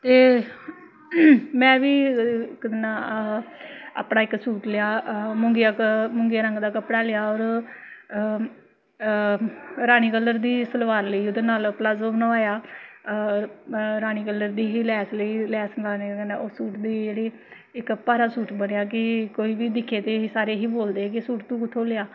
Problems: none marked